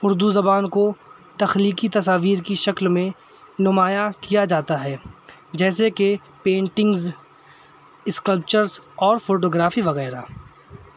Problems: constant background noise